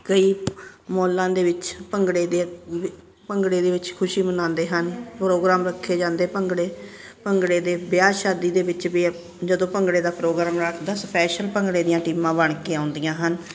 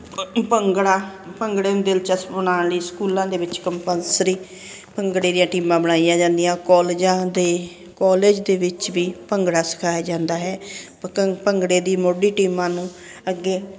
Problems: constant background noise